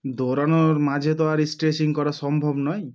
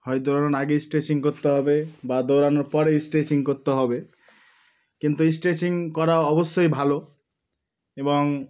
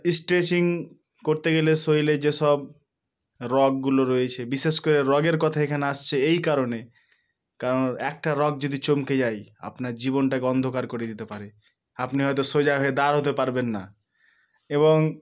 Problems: background sounds at intervals